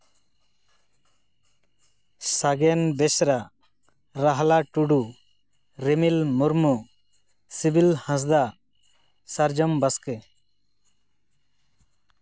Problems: none marked